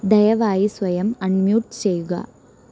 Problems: constant background noise